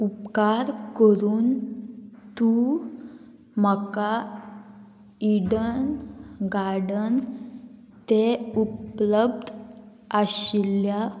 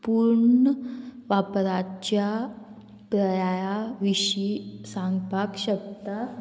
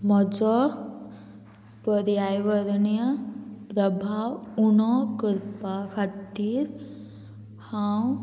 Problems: constant background noise